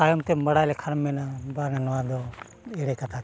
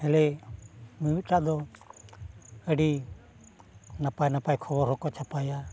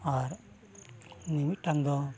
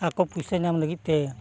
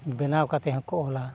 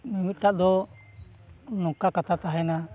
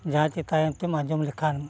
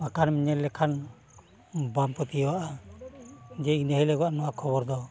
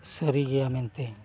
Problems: background sounds at intervals